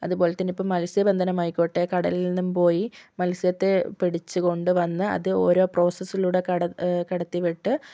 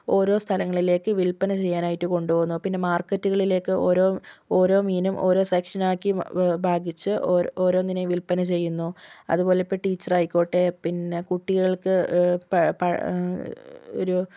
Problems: none marked